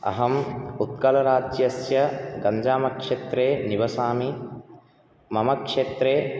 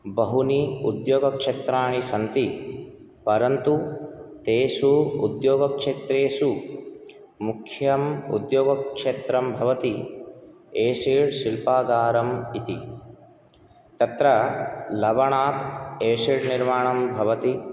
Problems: none marked